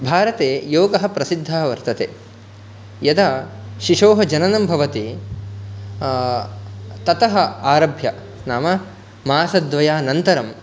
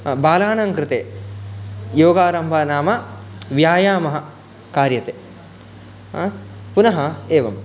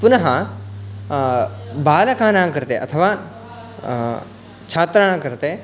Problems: background sounds at intervals, background conversations at intervals